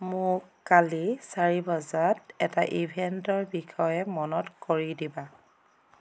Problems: none marked